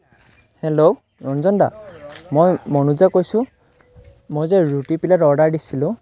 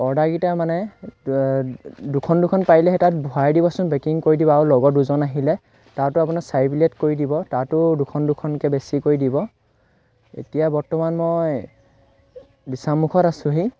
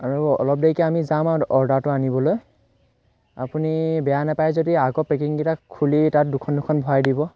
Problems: none marked